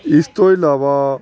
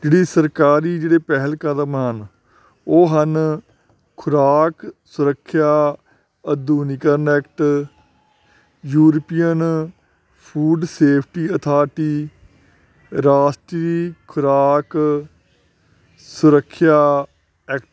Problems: none marked